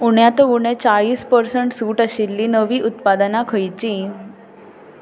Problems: background conversations at intervals